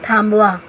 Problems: constant background noise